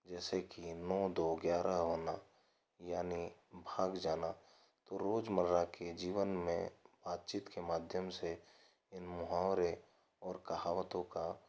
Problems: none marked